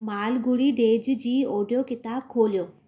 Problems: none marked